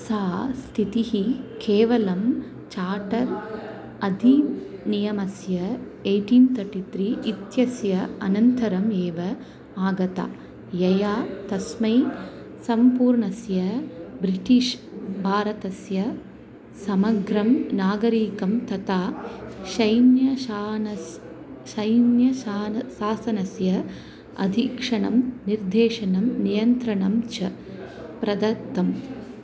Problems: continuous background conversations